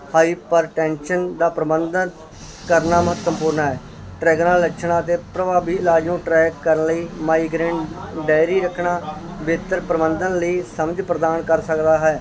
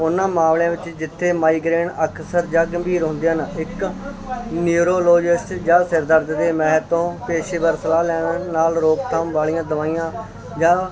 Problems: constant background noise, continuous background conversations